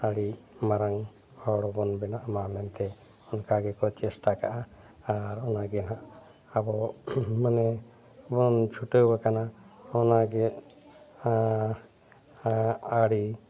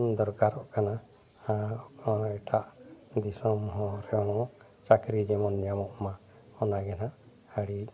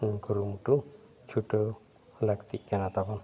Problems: constant background noise